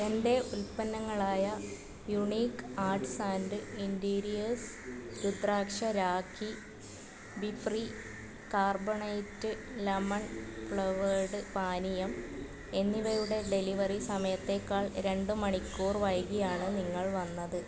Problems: constant background noise, low volume